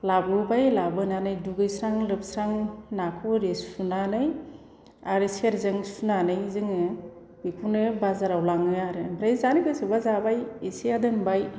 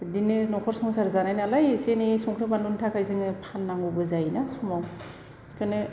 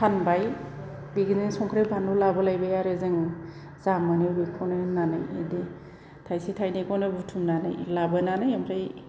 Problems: constant background noise